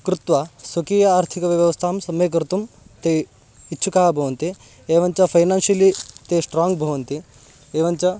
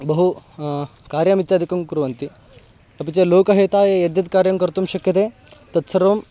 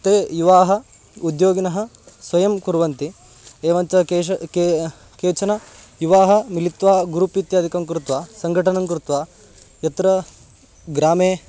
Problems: constant background noise